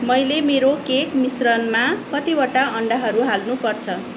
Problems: constant background noise